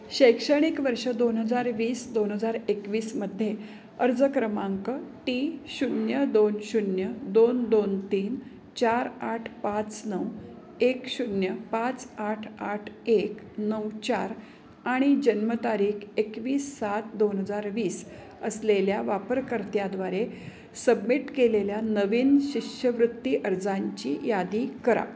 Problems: constant background noise, background conversations at intervals